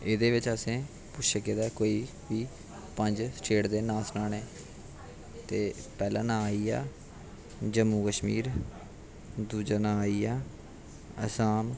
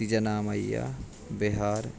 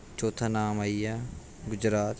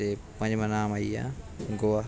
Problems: constant background noise